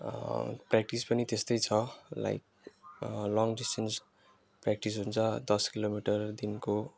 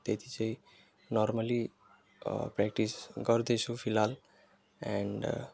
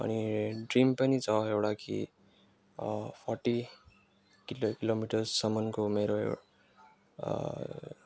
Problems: background sounds at intervals